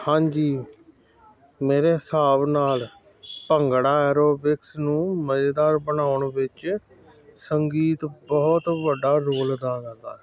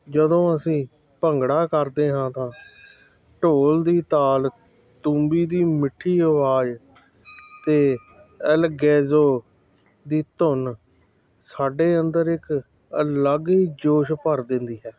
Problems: constant background noise